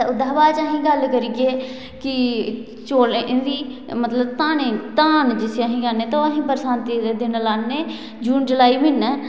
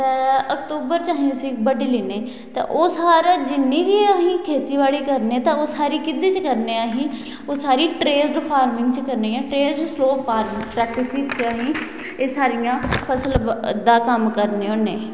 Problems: constant background noise, echo